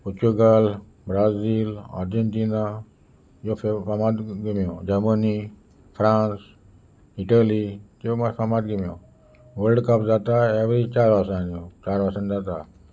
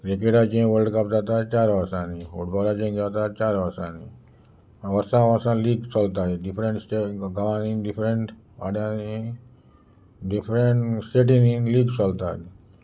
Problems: constant background noise